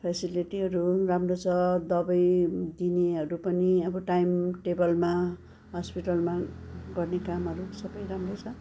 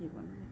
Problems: constant background noise, continuous background conversations